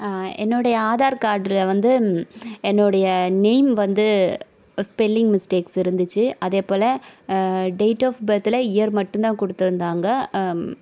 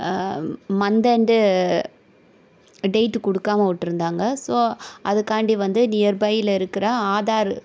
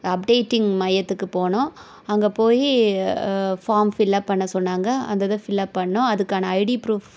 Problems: none marked